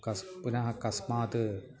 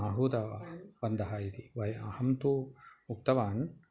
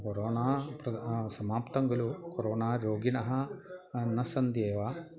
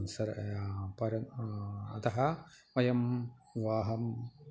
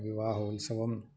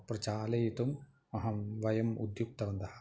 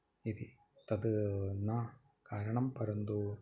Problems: background conversations at intervals